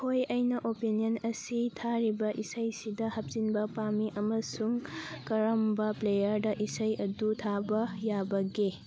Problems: background sounds at intervals, background conversations at intervals